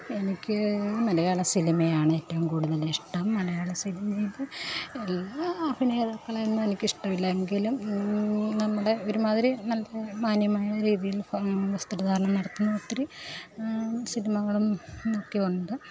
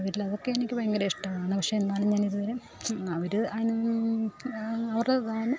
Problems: none marked